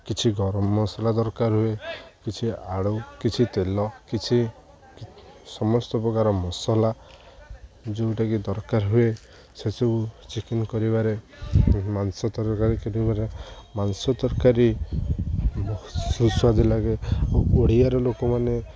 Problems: none marked